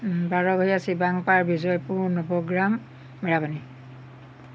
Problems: none marked